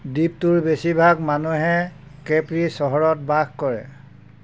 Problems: constant background noise